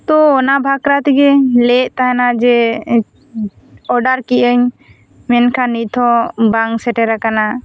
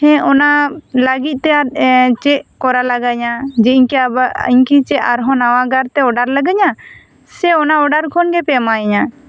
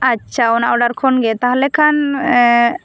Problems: constant background noise